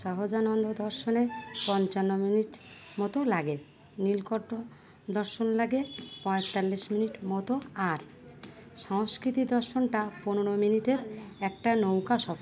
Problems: background sounds at intervals, background conversations at intervals